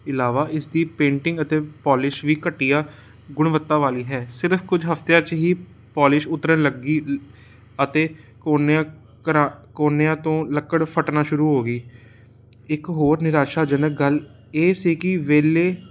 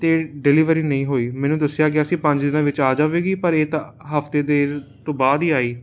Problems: constant background noise